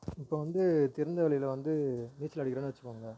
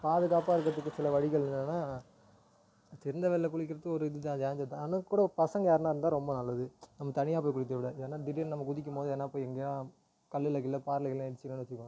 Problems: none marked